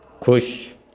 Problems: background conversations at intervals